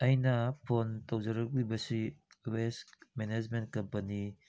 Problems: background sounds at intervals